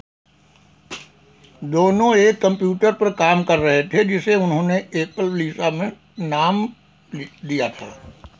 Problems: background sounds at intervals